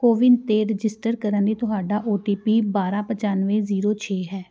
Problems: background sounds at intervals